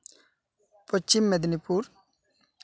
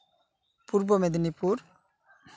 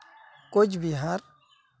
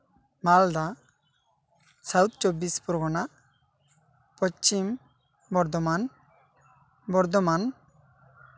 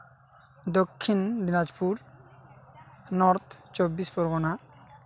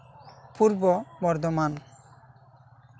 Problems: constant background noise